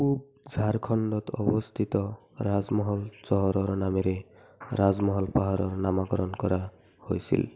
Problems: constant background noise, continuous background conversations